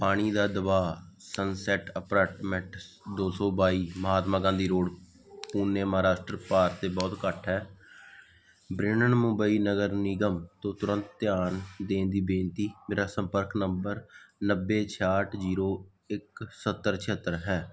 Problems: background sounds at intervals